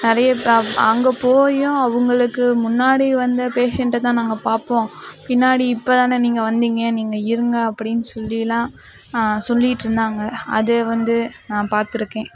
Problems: background conversations at intervals